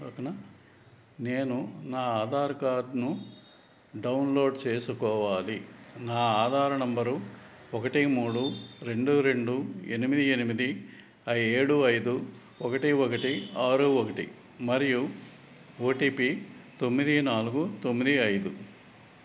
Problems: background conversations at intervals